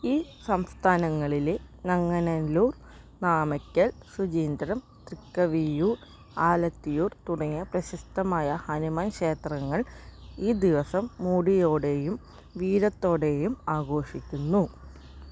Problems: background sounds at intervals